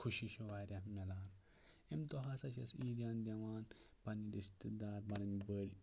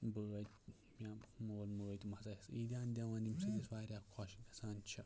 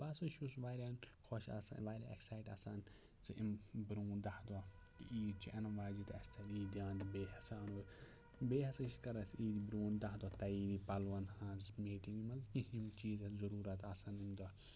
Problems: low volume